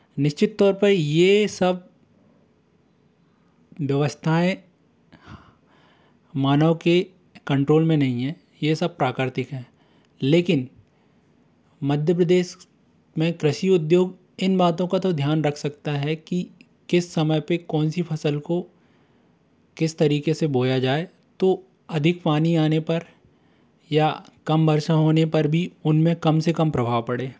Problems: constant background noise, background conversations at intervals